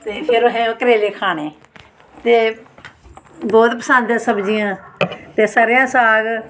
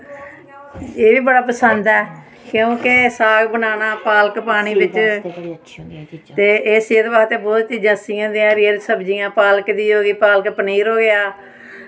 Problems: constant background noise